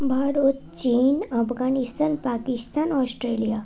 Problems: continuous background conversations